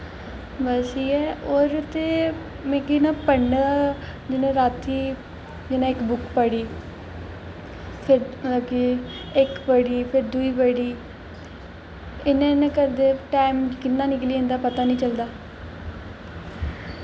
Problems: constant background noise, echo